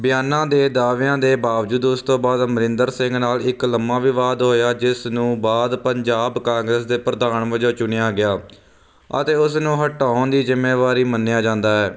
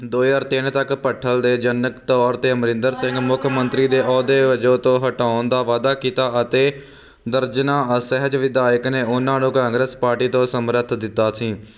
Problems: constant background noise